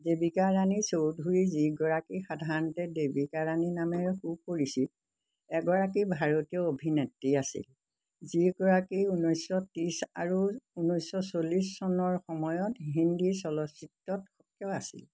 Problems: constant background noise